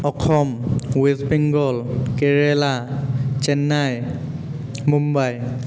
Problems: constant background noise, background conversations at intervals, echo